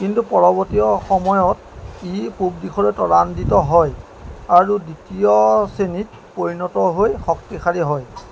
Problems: background sounds at intervals